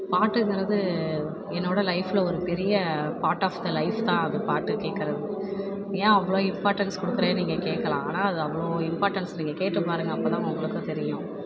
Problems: background sounds at intervals